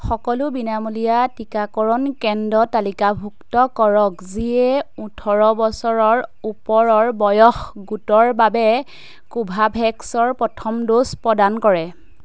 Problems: none marked